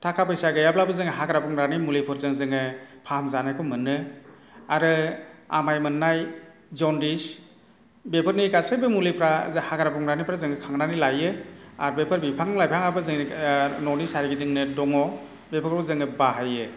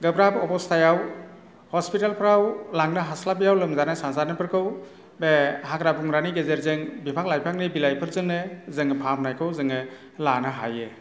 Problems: none marked